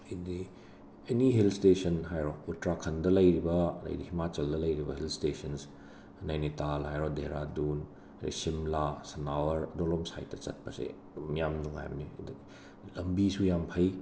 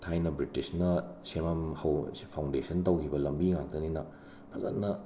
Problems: constant background noise